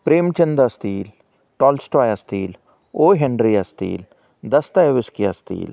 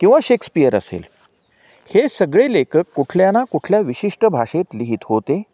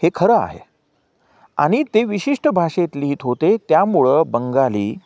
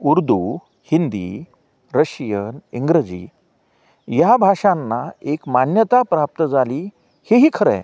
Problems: background sounds at intervals